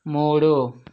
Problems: none marked